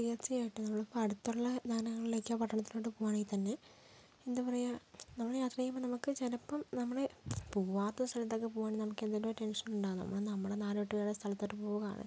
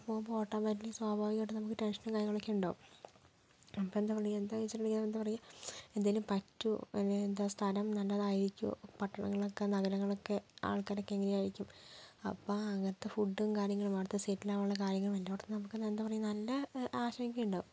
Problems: low volume